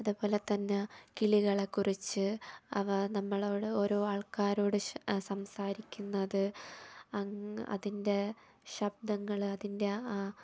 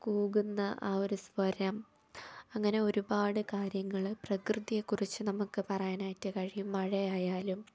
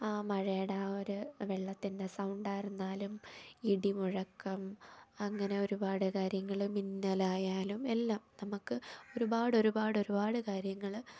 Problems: low volume